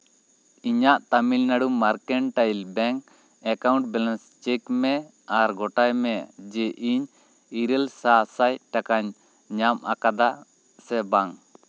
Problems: none marked